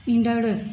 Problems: none marked